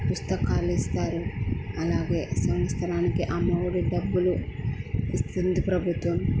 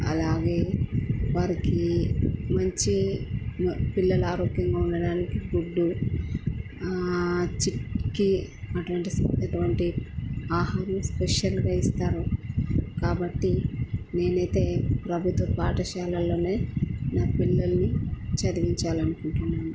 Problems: constant background noise